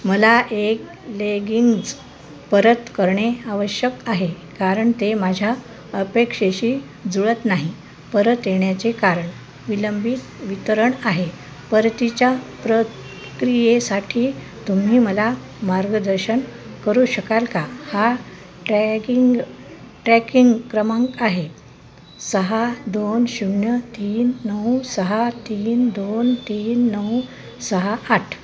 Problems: constant background noise, background conversations at intervals